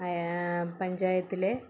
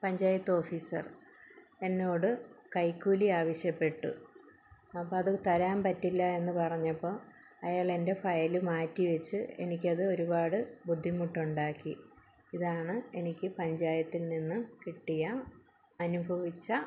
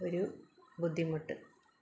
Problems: low volume